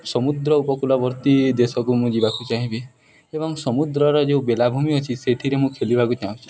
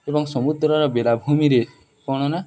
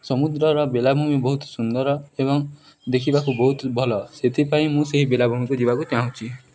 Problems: background sounds at intervals